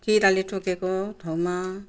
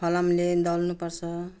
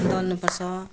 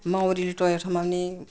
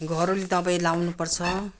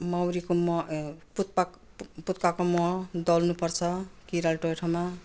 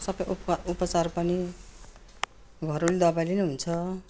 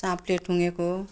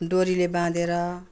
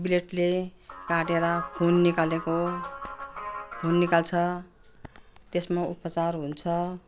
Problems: background sounds at intervals